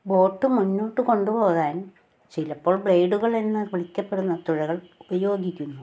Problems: background sounds at intervals